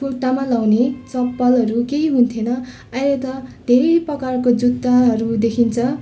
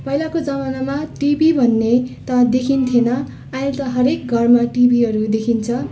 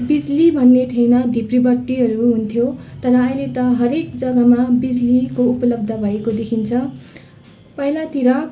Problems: constant background noise, continuous background conversations